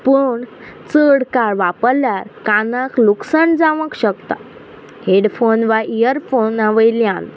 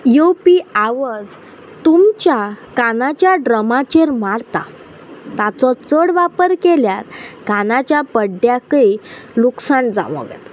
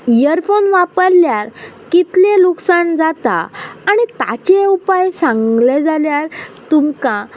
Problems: none marked